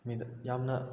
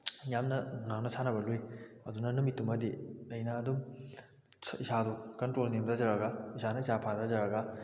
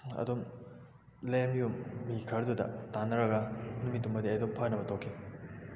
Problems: background sounds at intervals